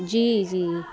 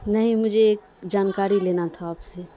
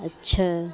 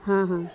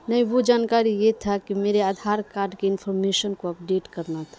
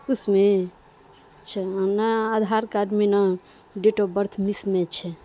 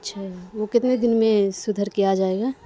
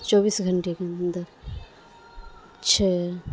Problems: constant background noise, low volume